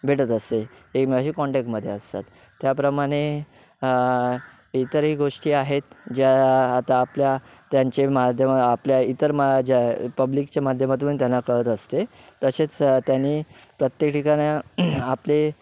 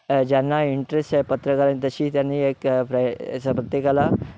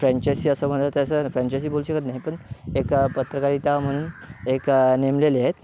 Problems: background sounds at intervals